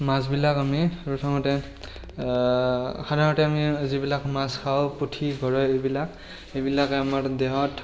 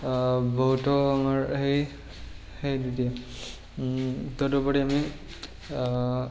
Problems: constant background noise, background conversations at intervals